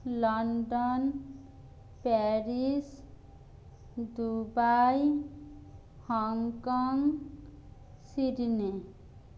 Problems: none marked